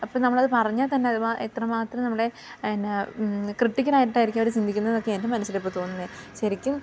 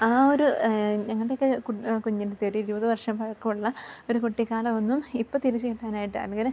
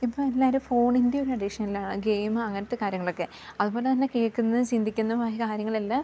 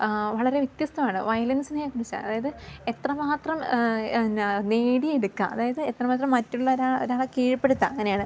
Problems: low volume